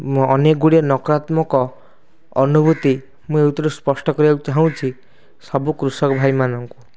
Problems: constant background noise